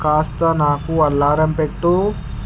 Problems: constant background noise